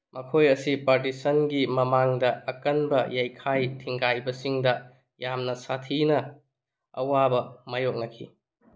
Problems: none marked